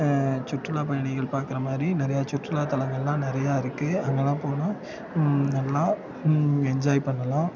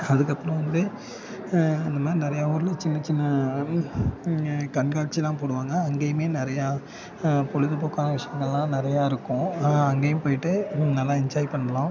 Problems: constant background noise, continuous background conversations